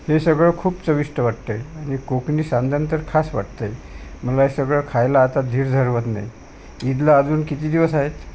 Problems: constant background noise